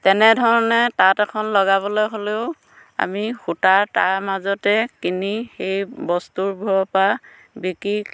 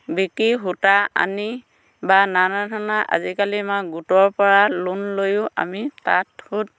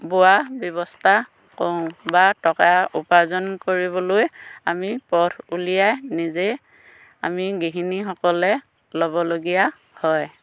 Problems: none marked